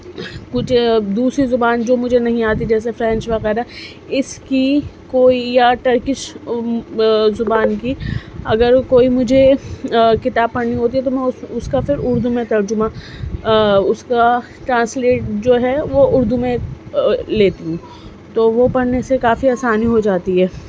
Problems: constant background noise